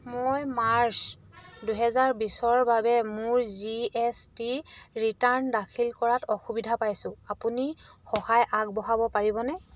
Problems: none marked